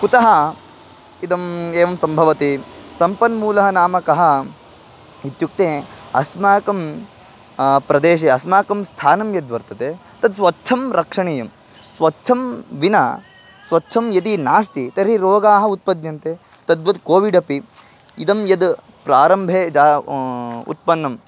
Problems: constant background noise